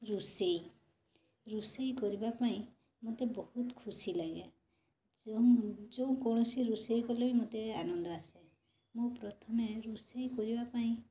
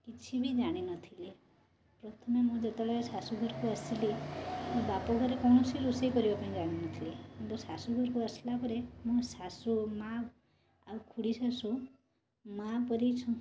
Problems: constant background noise, continuous background conversations